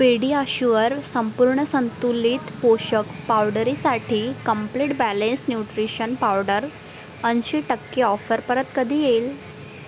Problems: constant background noise, background conversations at intervals